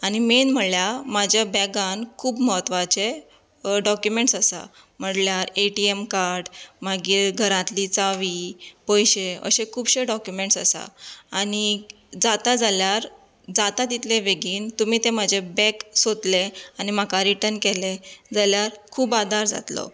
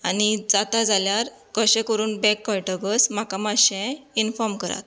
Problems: none marked